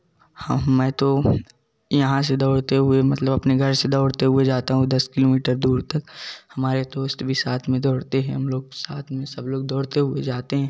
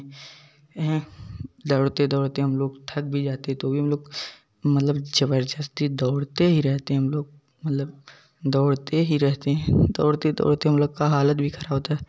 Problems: background sounds at intervals, continuous background conversations